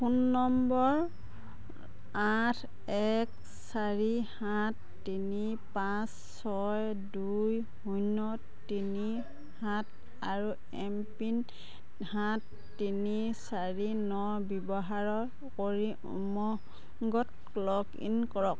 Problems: background sounds at intervals, background conversations at intervals